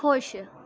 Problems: none marked